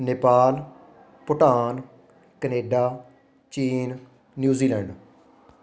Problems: continuous background conversations